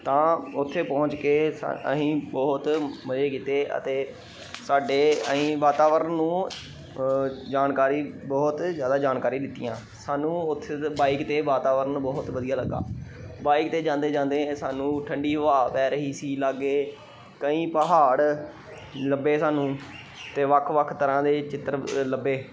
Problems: none marked